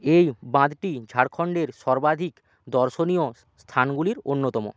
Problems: none marked